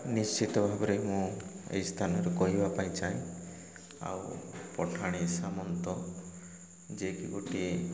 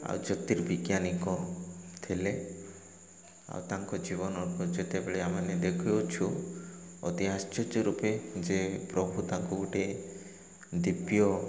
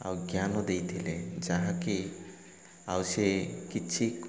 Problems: none marked